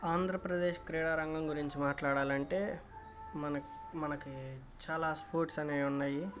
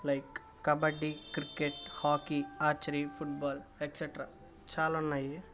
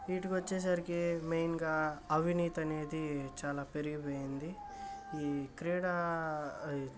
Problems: constant background noise